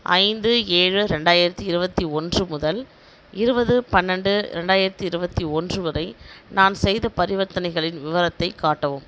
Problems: background sounds at intervals